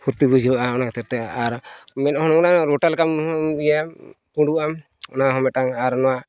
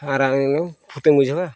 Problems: constant background noise